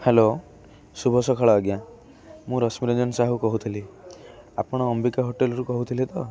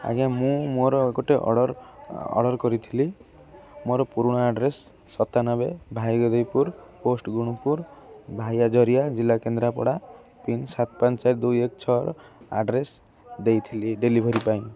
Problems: none marked